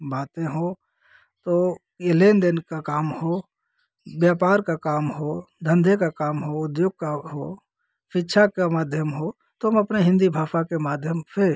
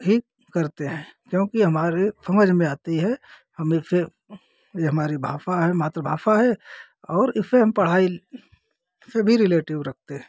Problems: constant background noise